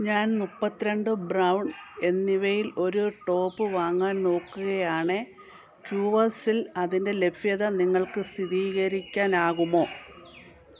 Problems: constant background noise